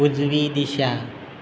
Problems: constant background noise